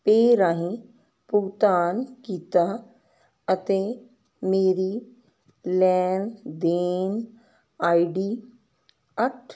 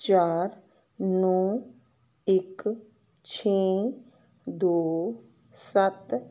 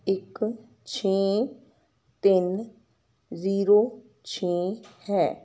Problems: constant background noise